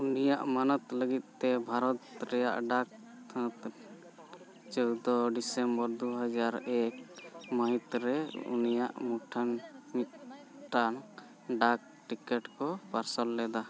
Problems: constant background noise, continuous background conversations